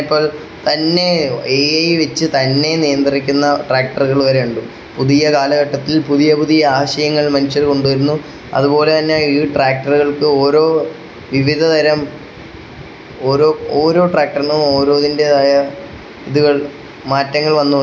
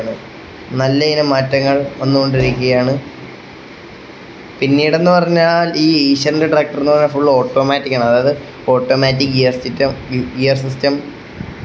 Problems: constant background noise